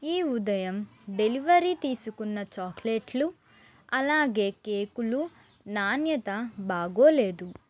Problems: constant background noise